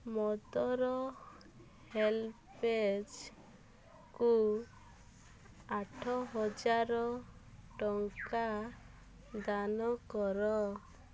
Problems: none marked